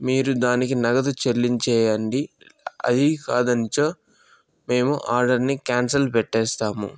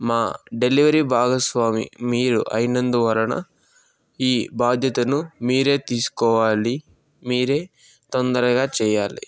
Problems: background sounds at intervals